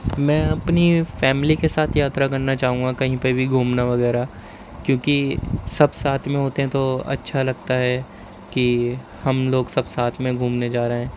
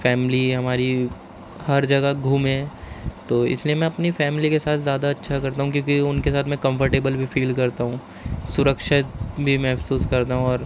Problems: constant background noise